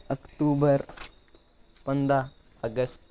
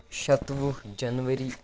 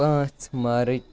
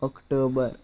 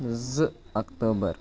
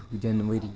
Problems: constant background noise, background conversations at intervals